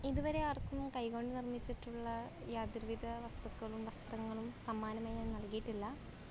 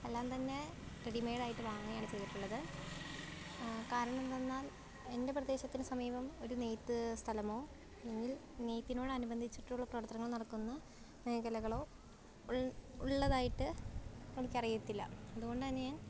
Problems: background sounds at intervals, low volume